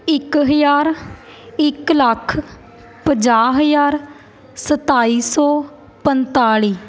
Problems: constant background noise